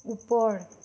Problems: none marked